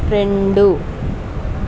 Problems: constant background noise